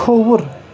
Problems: constant background noise